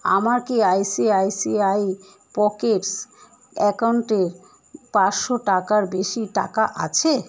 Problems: constant background noise, continuous background conversations